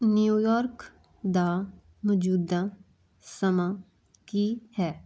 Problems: none marked